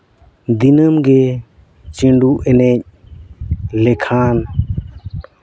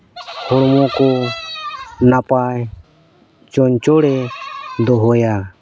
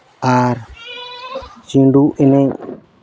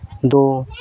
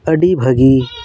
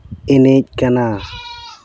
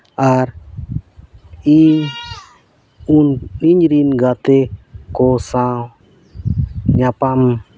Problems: background sounds at intervals, background conversations at intervals